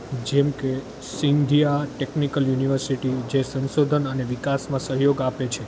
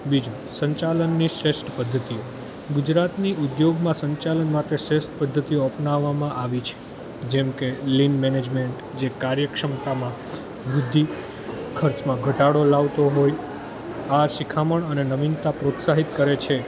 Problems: constant background noise